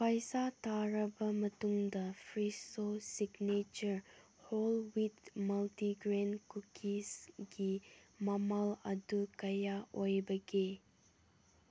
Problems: none marked